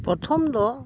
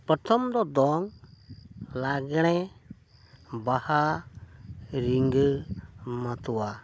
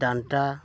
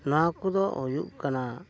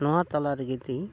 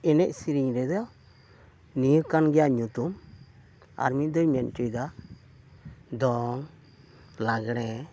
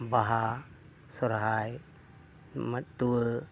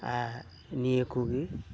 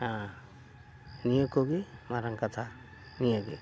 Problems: none marked